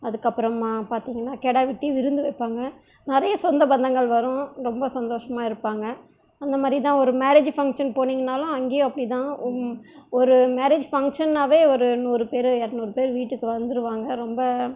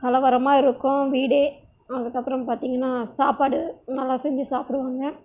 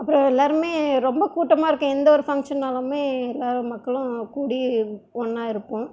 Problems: none marked